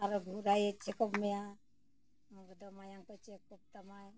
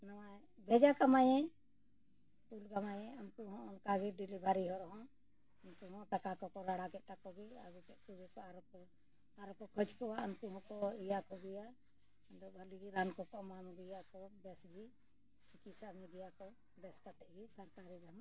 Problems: low volume